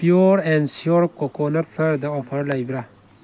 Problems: none marked